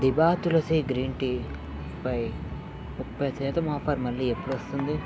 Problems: constant background noise, background conversations at intervals